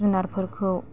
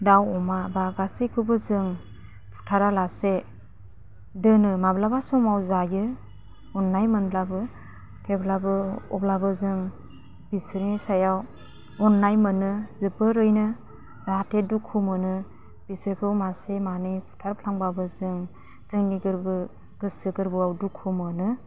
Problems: low volume